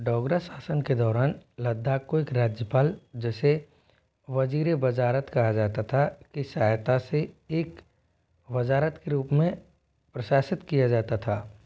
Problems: background sounds at intervals